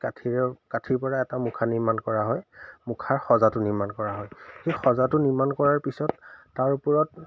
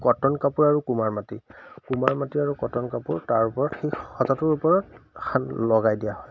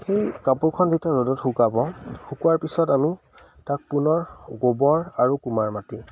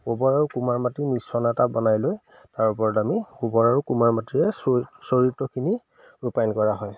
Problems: none marked